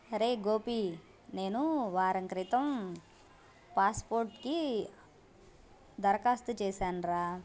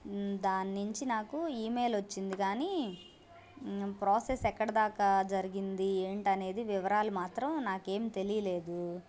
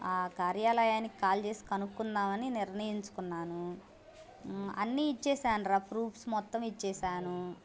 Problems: constant background noise, background conversations at intervals